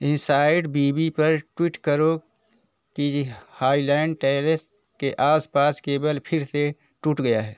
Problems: none marked